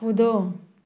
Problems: continuous background conversations